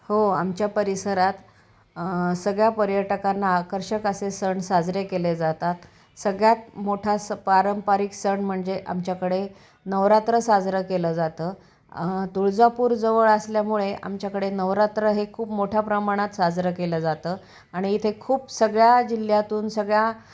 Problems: background sounds at intervals, background conversations at intervals